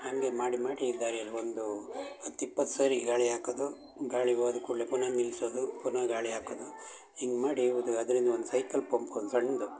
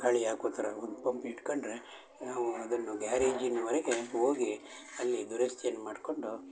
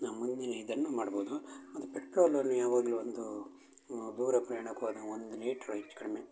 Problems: constant background noise